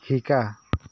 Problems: none marked